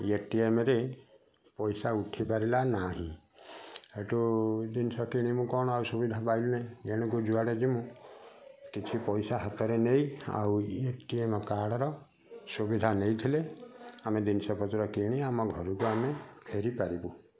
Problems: constant background noise, continuous background conversations